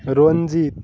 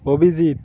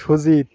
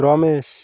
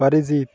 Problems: none marked